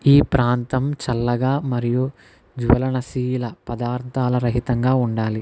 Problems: none marked